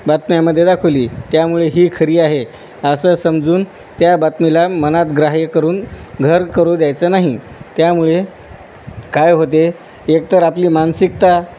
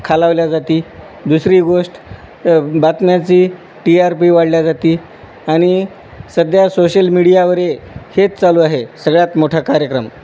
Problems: constant background noise